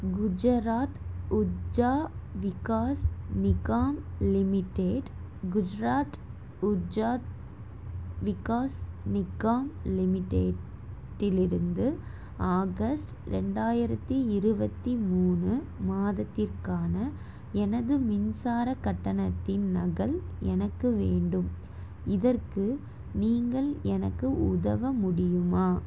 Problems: constant background noise